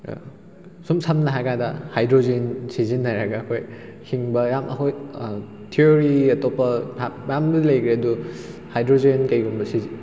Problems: background sounds at intervals